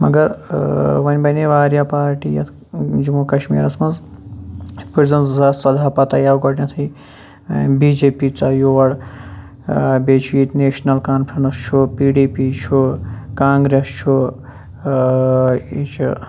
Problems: background sounds at intervals